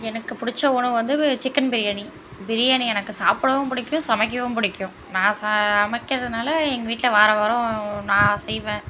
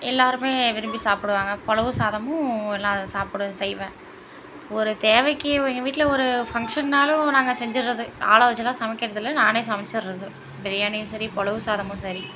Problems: constant background noise